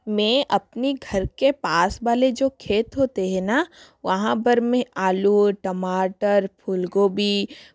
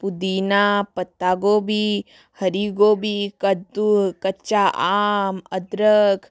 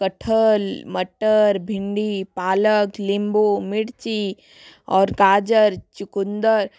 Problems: constant background noise